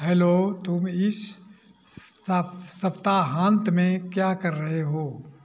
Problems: background sounds at intervals